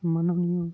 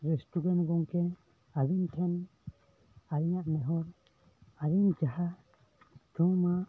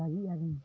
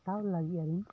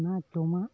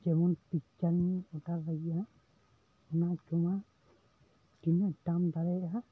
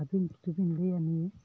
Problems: constant background noise, continuous background conversations, low volume